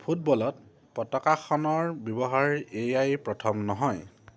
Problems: none marked